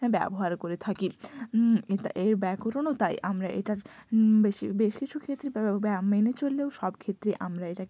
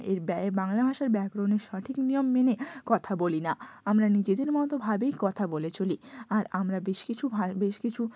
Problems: none marked